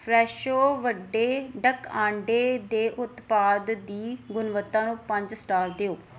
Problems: background sounds at intervals